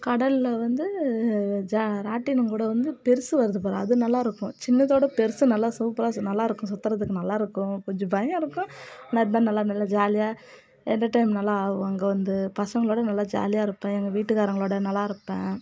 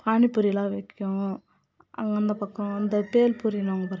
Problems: background conversations at intervals